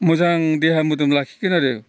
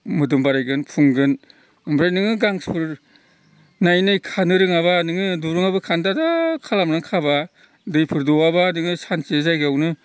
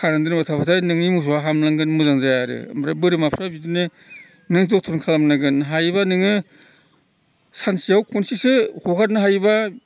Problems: background sounds at intervals